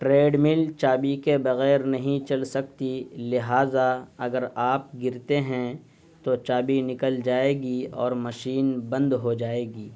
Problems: constant background noise